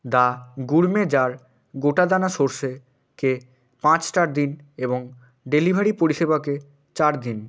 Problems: none marked